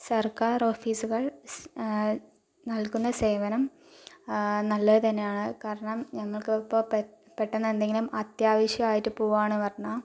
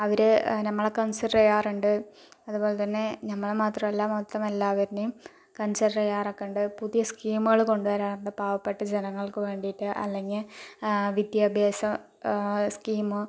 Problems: low volume